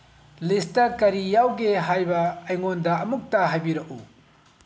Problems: low volume